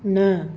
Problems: none marked